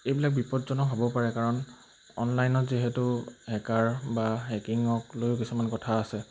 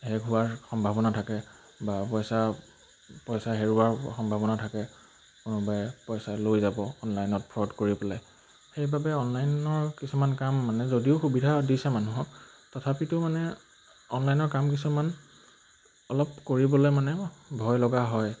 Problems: none marked